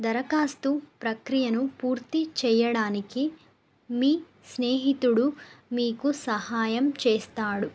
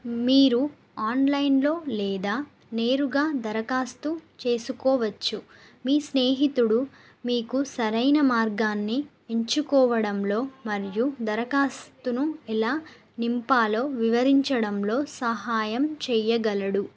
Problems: none marked